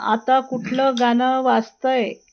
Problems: background sounds at intervals